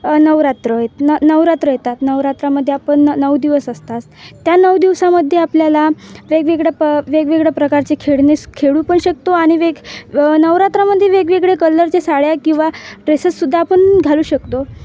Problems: none marked